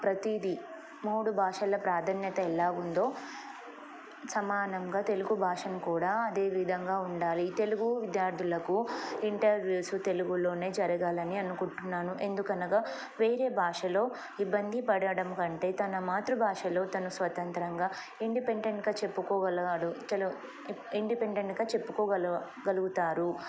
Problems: none marked